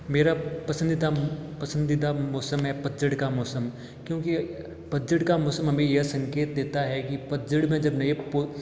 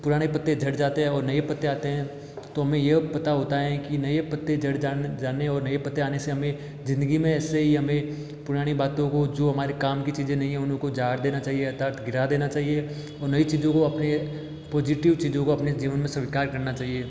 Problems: none marked